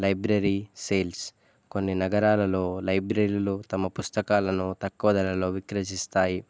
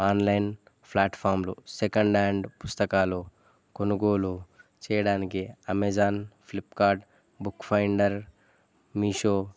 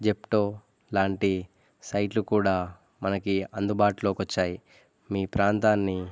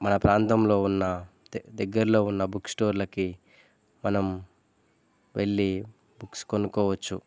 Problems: none marked